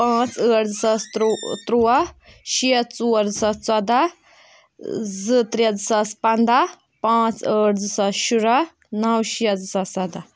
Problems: background sounds at intervals